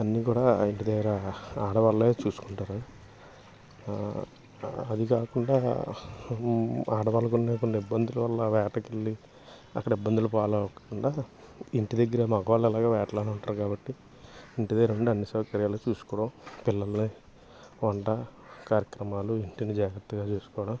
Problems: constant background noise